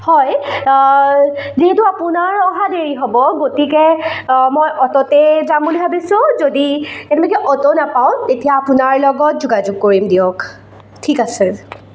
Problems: echo